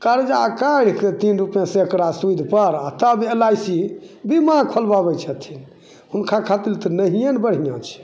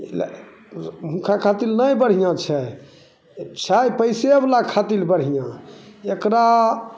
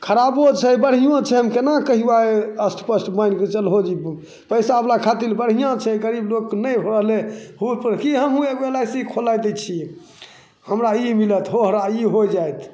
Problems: none marked